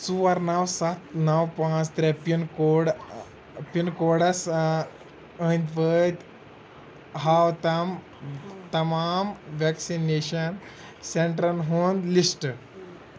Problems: none marked